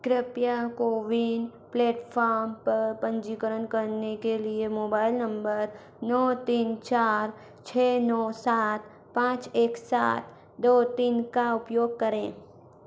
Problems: none marked